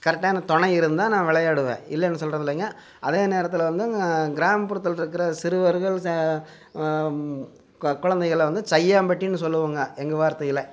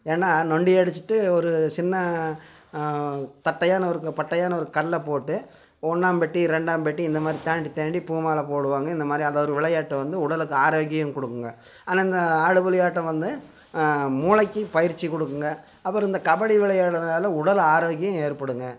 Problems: constant background noise